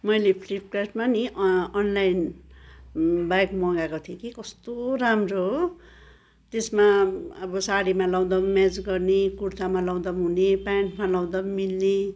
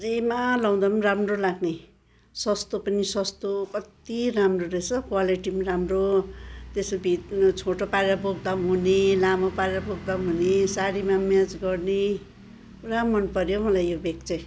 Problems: background conversations at intervals